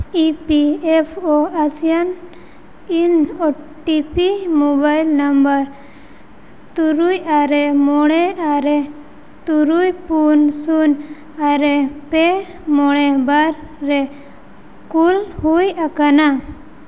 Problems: constant background noise, echo